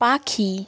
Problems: none marked